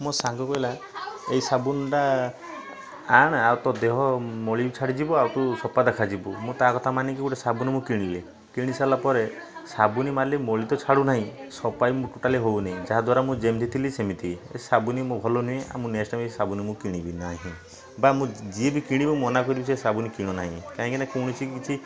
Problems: constant background noise, continuous background conversations